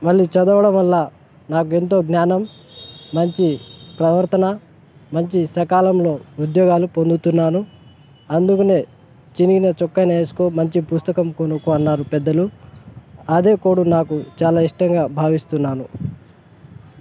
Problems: constant background noise